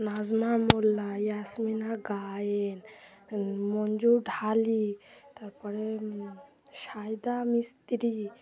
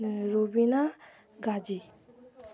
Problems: none marked